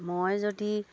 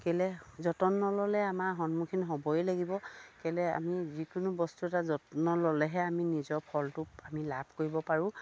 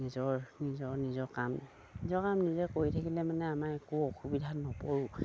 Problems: none marked